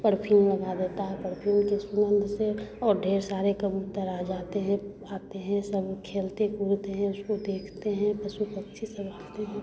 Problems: none marked